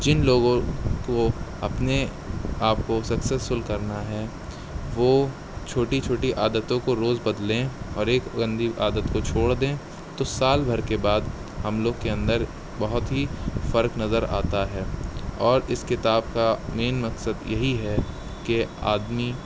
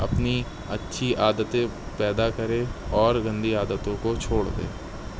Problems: constant background noise